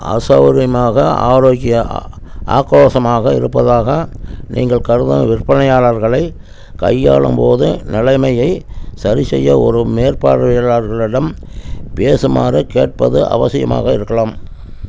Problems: constant background noise